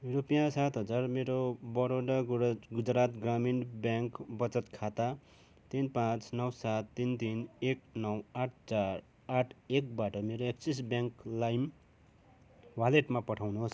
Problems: none marked